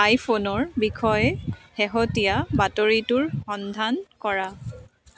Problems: continuous background conversations